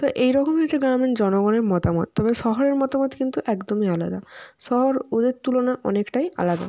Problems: none marked